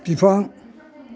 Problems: none marked